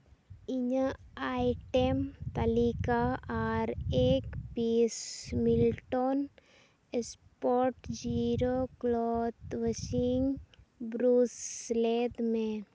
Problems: none marked